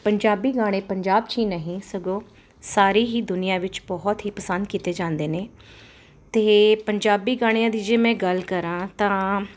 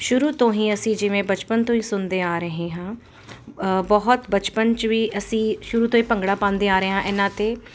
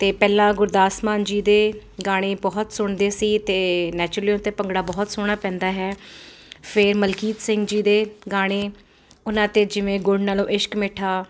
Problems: constant background noise